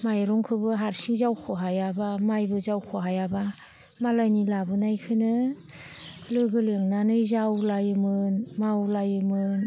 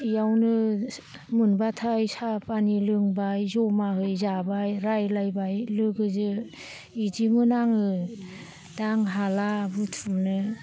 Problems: low volume